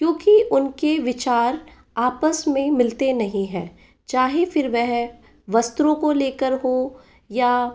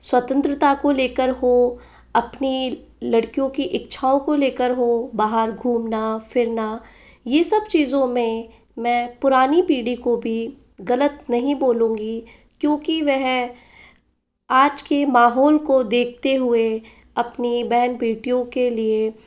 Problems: background sounds at intervals